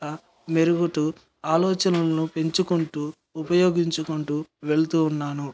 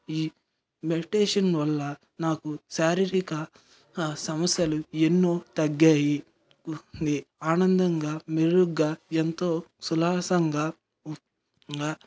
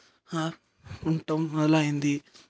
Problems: background sounds at intervals